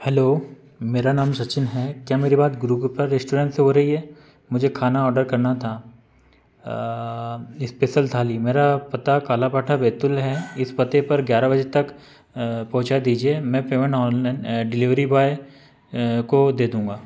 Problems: constant background noise